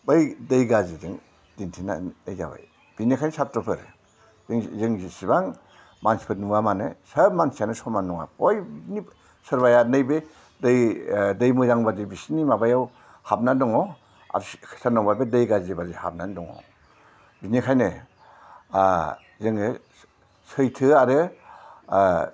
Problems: low volume